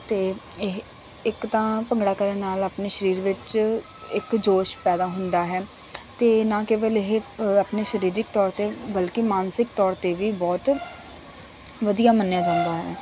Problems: constant background noise